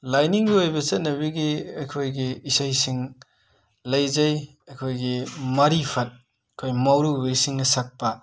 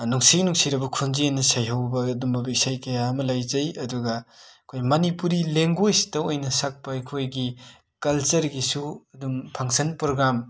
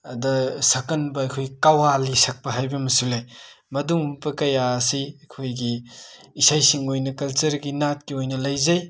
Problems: background sounds at intervals